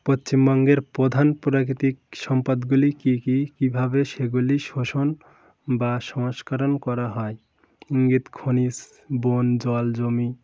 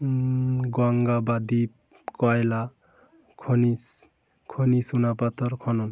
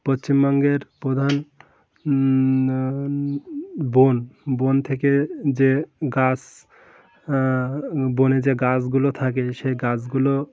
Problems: constant background noise, background conversations at intervals